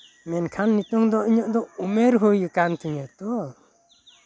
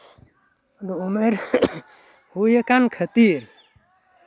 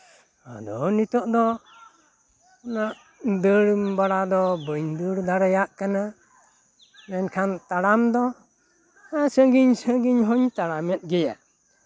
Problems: background sounds at intervals, background conversations at intervals